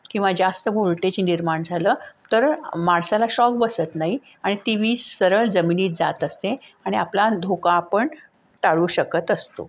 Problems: background sounds at intervals